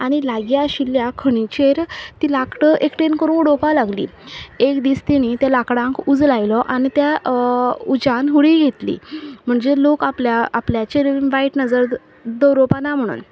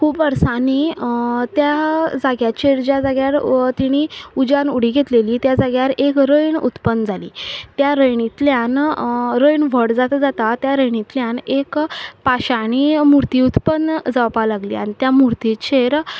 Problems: background sounds at intervals